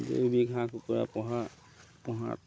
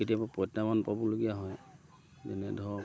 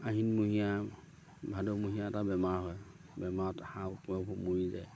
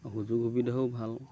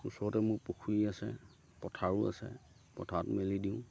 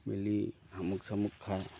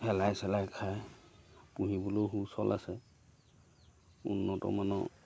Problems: none marked